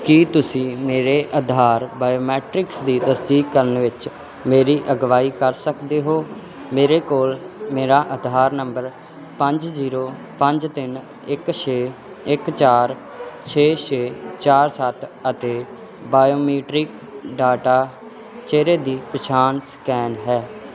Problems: continuous background conversations